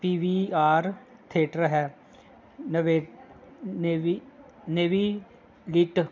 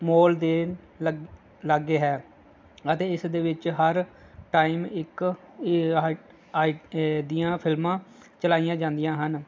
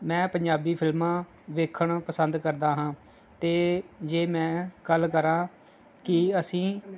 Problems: none marked